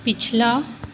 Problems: constant background noise